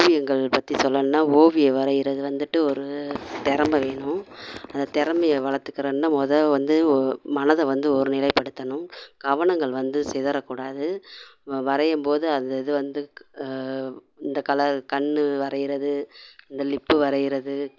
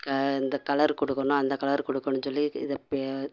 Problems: none marked